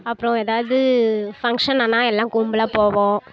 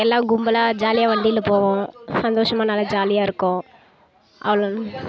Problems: background conversations at intervals